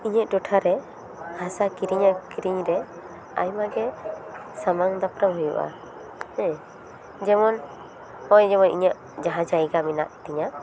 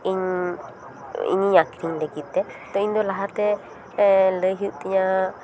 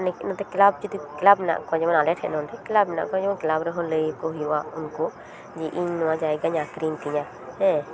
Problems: background conversations at intervals